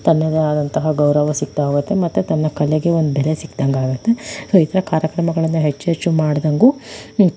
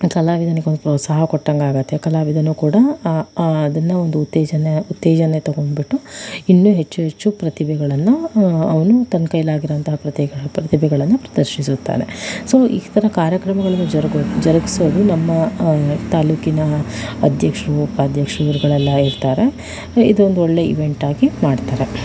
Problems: background sounds at intervals